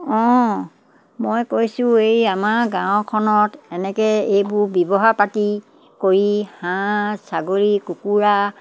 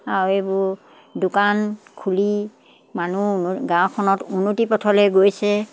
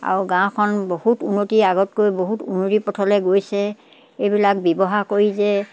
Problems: none marked